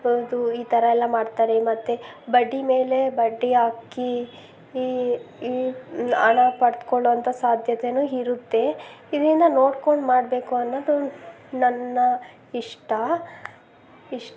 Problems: none marked